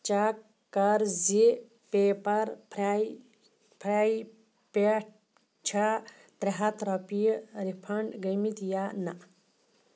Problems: none marked